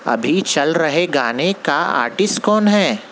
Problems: constant background noise